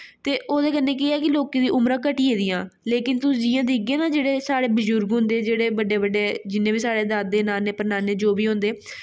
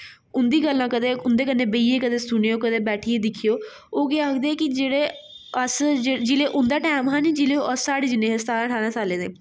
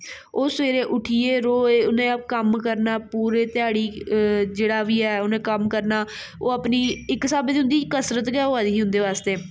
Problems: none marked